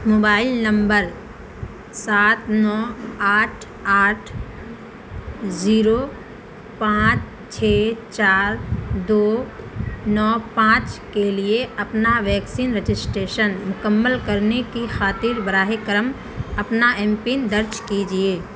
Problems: constant background noise